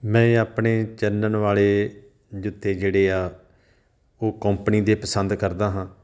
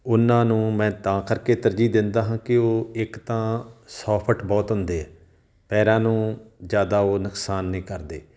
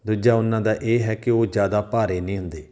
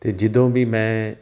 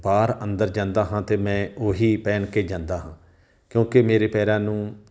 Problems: none marked